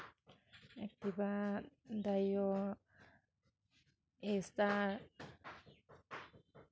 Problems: background sounds at intervals